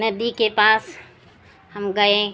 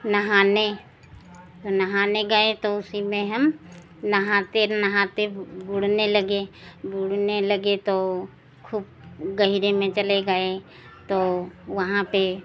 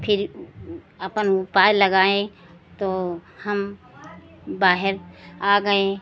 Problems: constant background noise